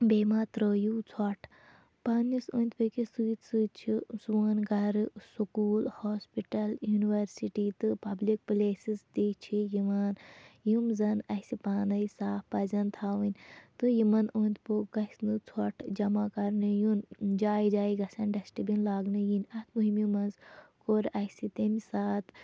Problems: none marked